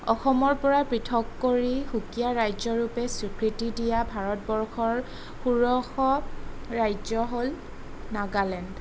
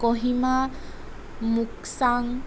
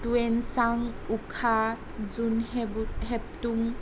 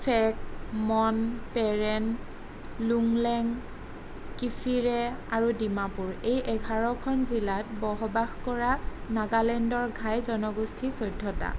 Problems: none marked